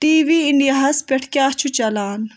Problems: background sounds at intervals